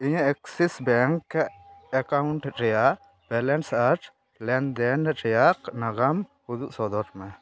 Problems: none marked